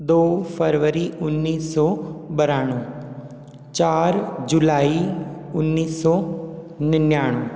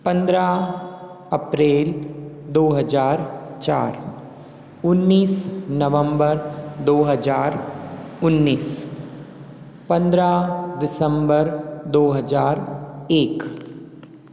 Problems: none marked